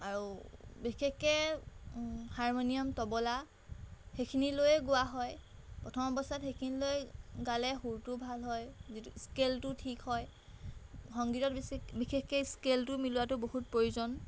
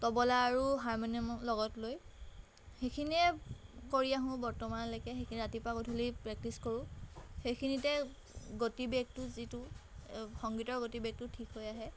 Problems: background sounds at intervals